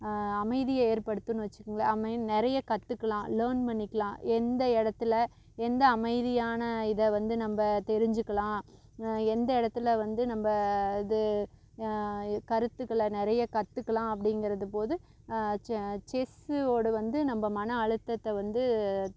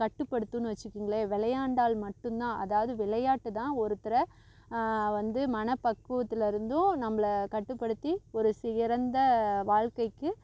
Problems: constant background noise